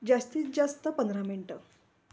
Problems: background sounds at intervals